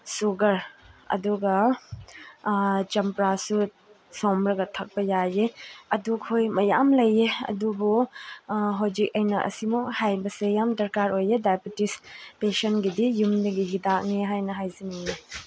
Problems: none marked